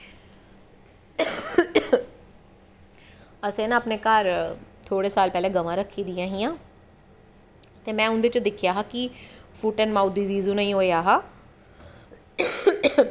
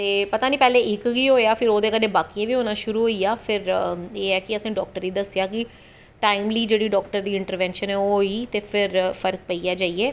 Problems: none marked